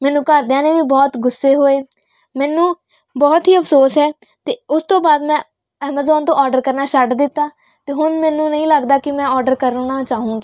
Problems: none marked